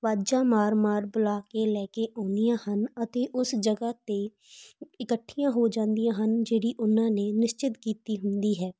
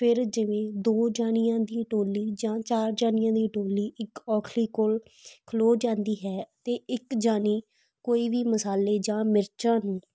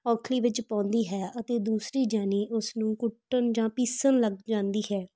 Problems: background sounds at intervals